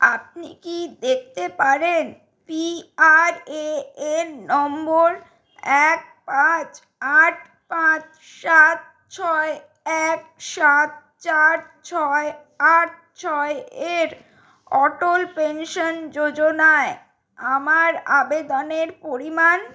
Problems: background sounds at intervals